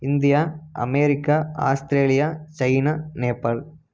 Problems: none marked